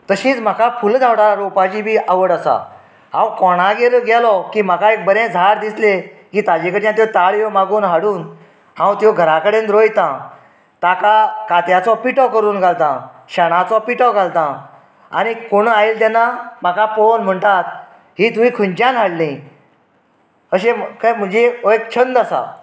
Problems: background sounds at intervals